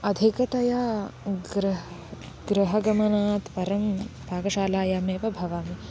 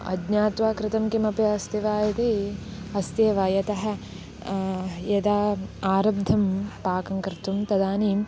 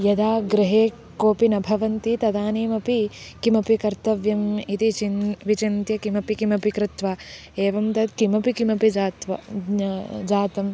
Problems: constant background noise